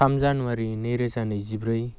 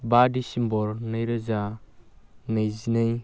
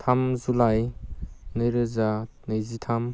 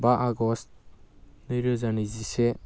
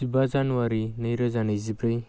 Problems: constant background noise